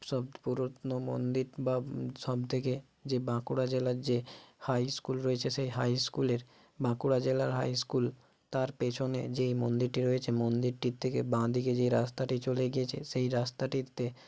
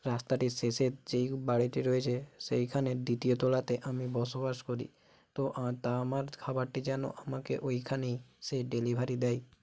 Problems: none marked